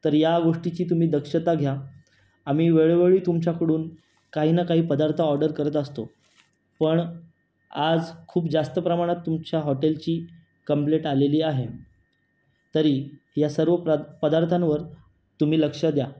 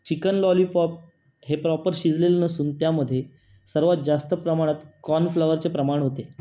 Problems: none marked